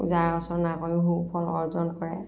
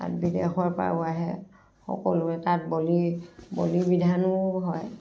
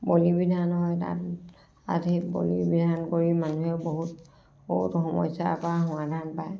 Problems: background sounds at intervals, background conversations at intervals, low volume